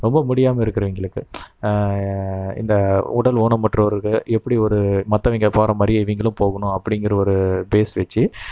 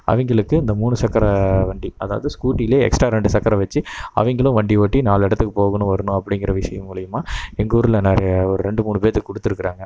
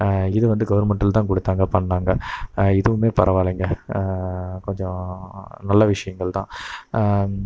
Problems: none marked